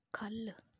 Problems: low volume